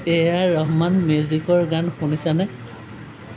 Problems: background sounds at intervals, background conversations at intervals